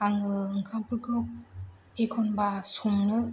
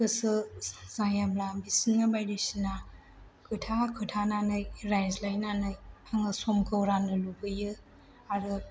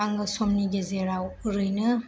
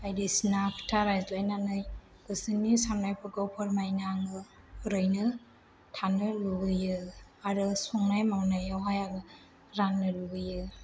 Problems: none marked